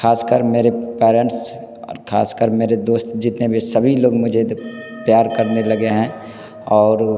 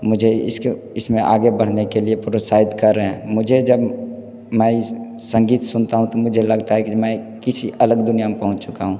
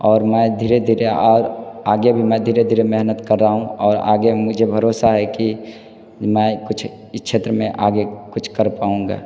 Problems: constant background noise, background conversations at intervals